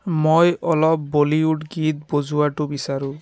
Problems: background conversations at intervals